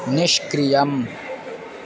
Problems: constant background noise, continuous background conversations